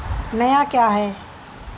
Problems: constant background noise